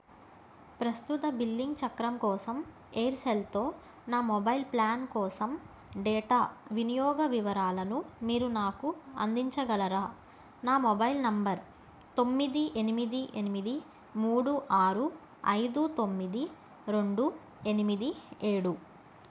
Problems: none marked